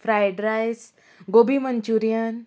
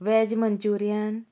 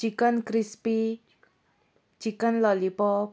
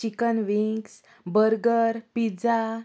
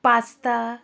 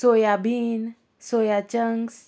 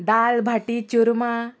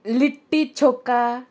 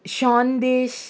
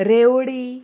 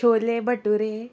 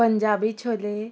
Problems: constant background noise, continuous background conversations